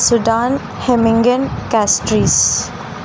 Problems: constant background noise